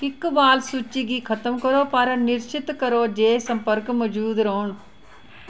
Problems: constant background noise